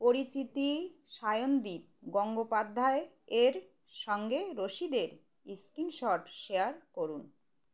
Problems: constant background noise